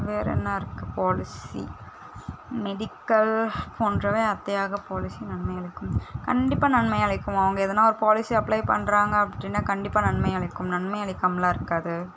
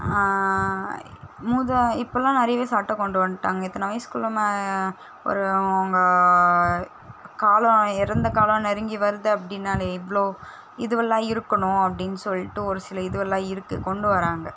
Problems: constant background noise